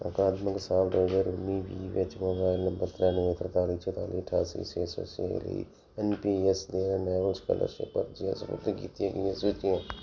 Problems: none marked